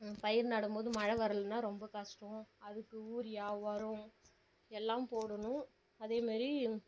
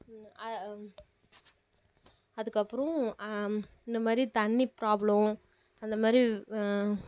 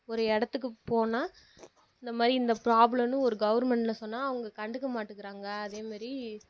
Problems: low volume